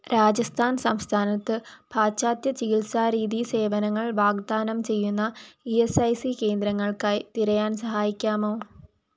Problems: none marked